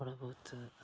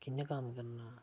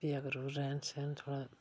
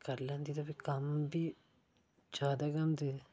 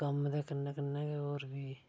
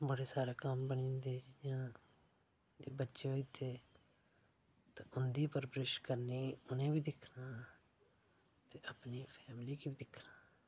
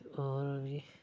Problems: low volume